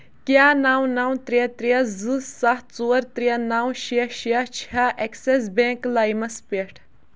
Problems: background sounds at intervals